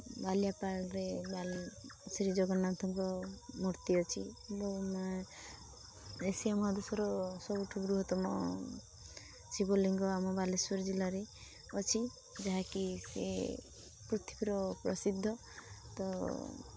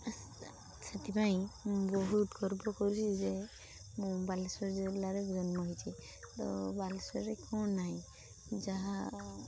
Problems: none marked